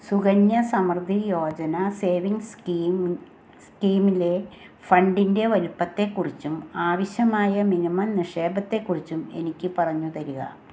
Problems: constant background noise